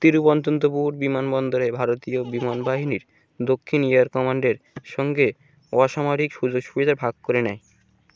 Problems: constant background noise